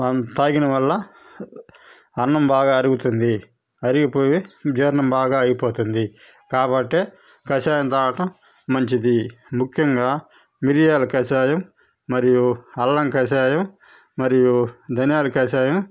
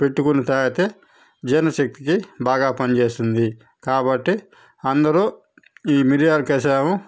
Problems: none marked